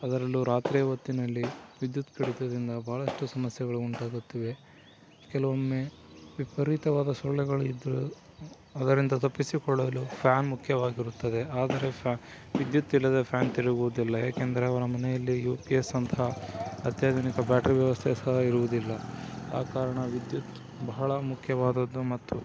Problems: constant background noise, low volume